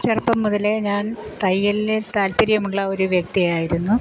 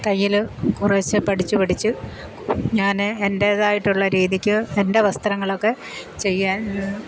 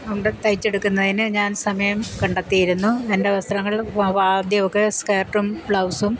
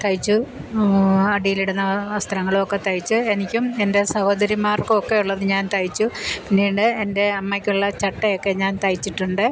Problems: constant background noise